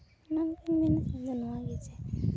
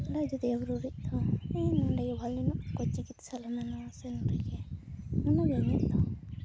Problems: background sounds at intervals